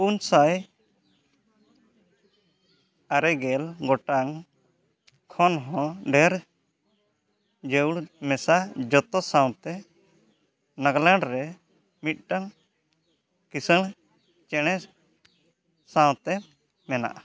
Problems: none marked